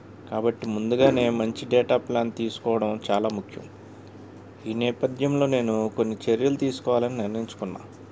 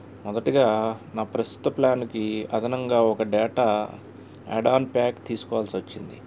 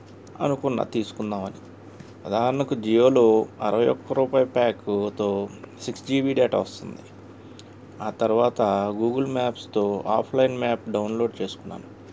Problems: constant background noise